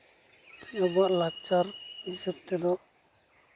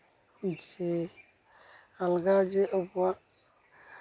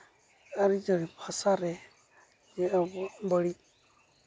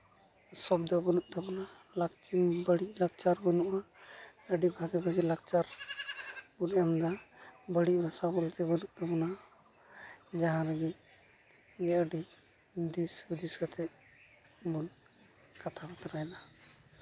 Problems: none marked